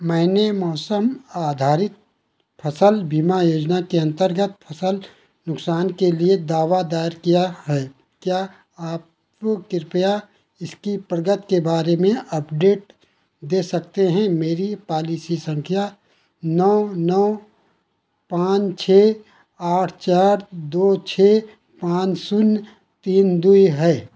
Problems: none marked